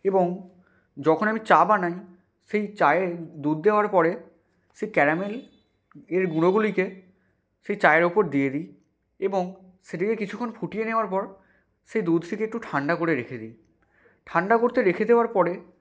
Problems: background sounds at intervals